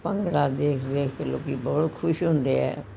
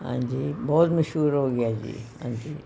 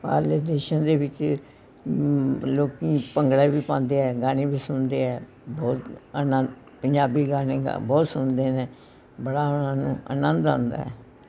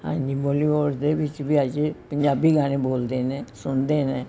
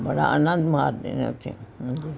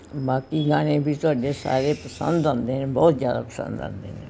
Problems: background conversations at intervals